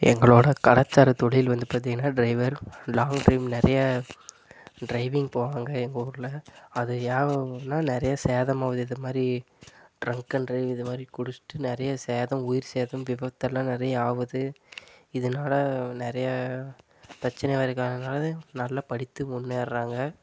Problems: constant background noise